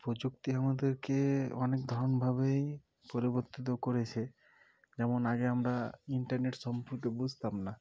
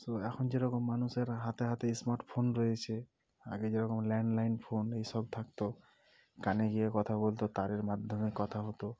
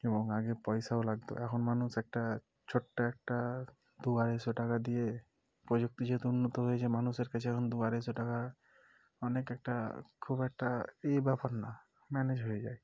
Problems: none marked